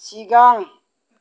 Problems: none marked